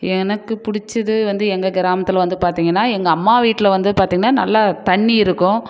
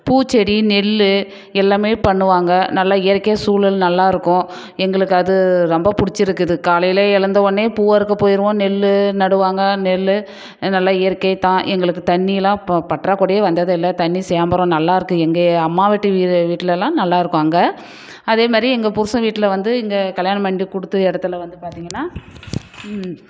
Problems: none marked